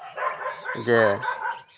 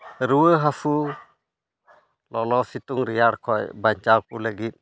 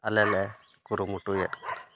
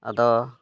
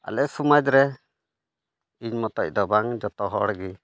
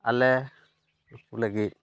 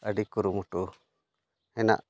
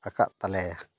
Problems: none marked